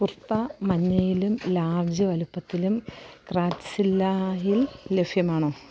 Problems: low volume